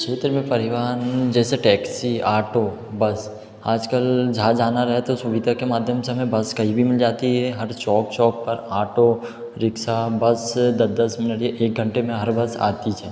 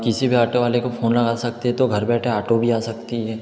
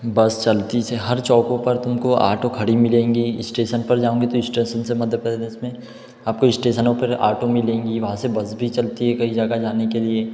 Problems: echo